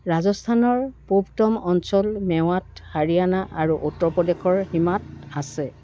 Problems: background sounds at intervals